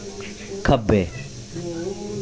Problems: none marked